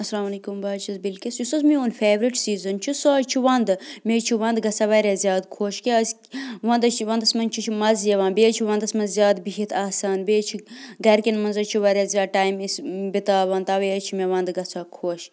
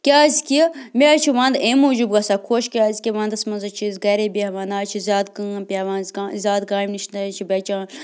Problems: none marked